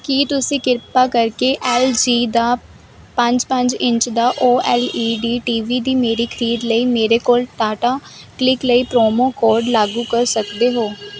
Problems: constant background noise